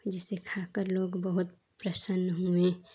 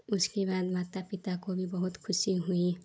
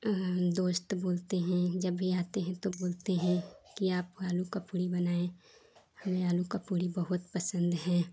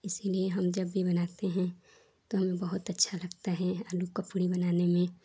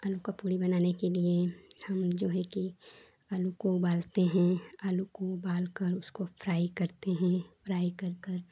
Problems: low volume